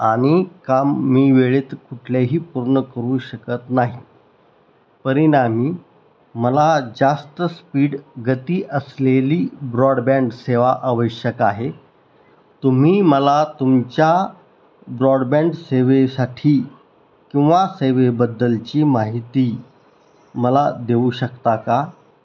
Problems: none marked